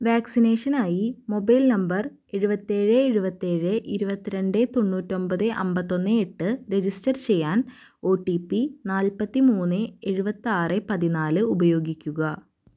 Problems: none marked